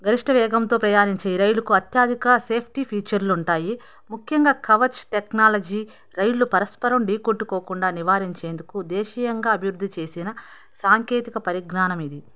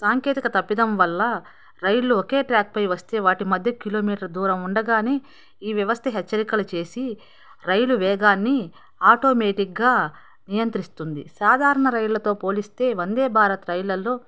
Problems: background conversations at intervals